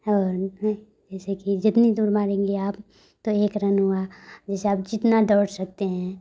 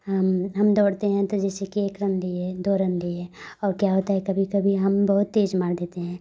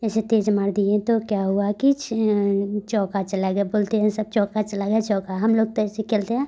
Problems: none marked